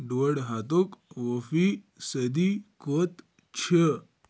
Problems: background sounds at intervals